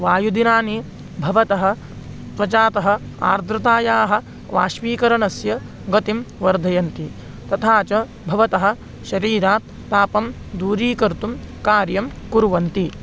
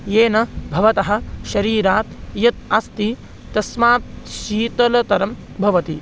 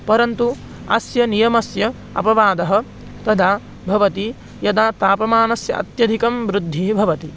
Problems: constant background noise